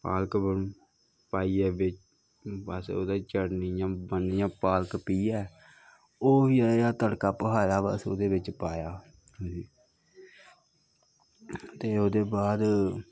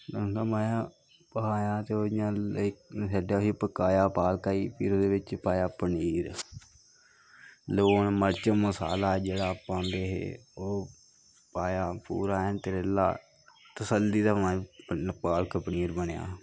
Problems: constant background noise, low volume